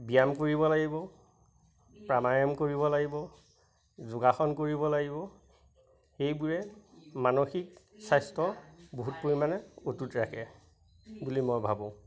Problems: constant background noise, background conversations at intervals